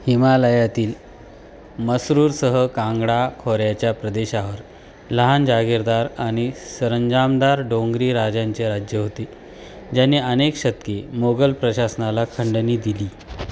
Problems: constant background noise